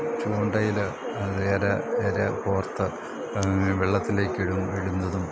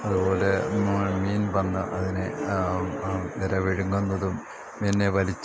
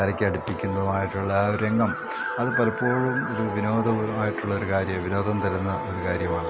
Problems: none marked